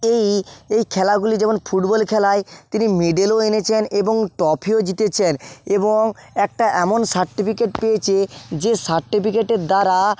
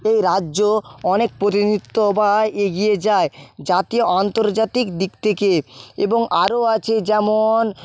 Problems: background sounds at intervals, background conversations at intervals